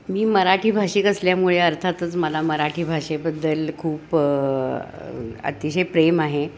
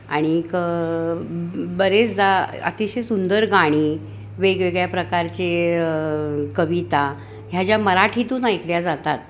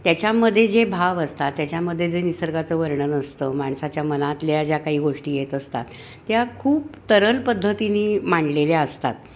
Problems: constant background noise